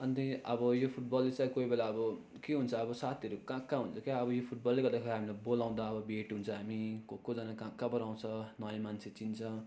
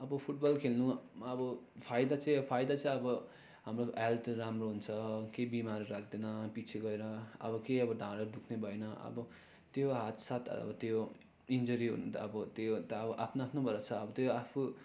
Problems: constant background noise